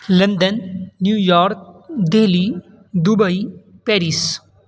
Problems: constant background noise